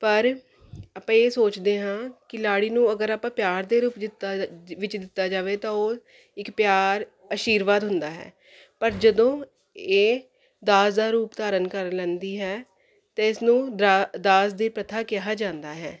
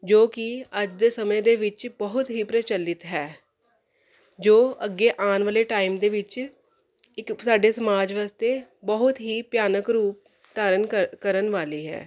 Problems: none marked